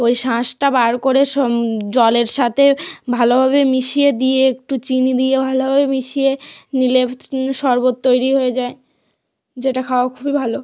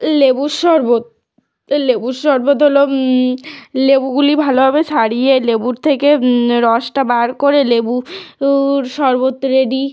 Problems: background sounds at intervals